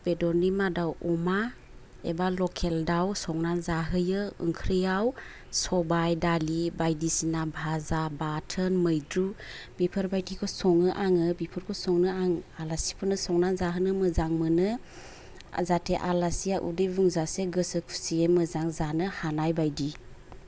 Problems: low volume